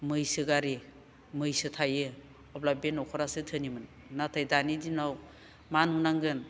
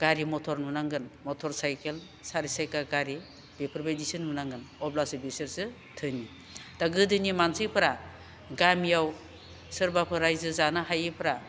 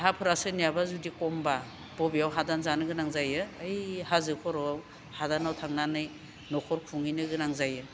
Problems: none marked